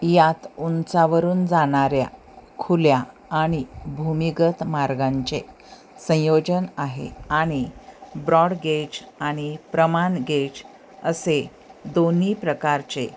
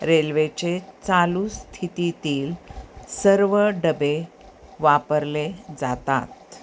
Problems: constant background noise, background conversations at intervals